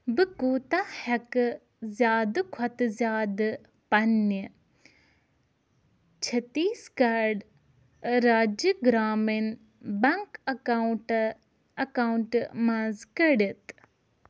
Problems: none marked